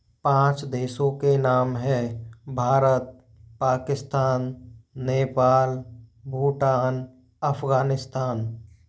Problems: background sounds at intervals